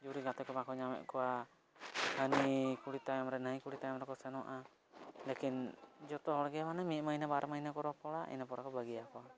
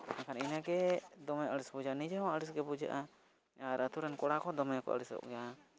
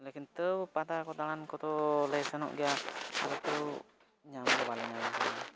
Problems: background sounds at intervals, low volume